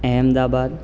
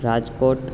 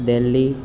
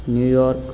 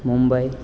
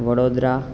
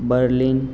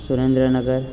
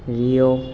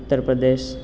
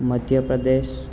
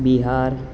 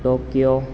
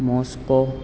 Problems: constant background noise